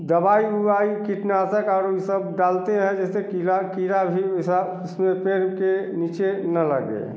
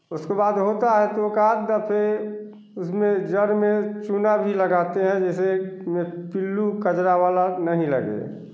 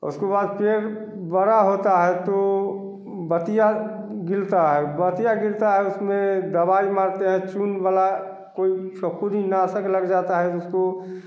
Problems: none marked